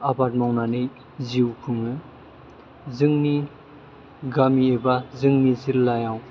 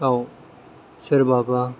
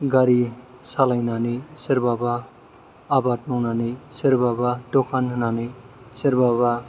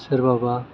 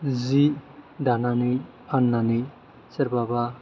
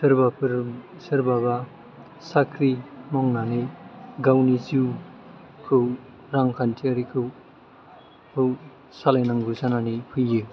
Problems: low volume